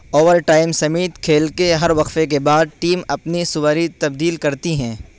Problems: constant background noise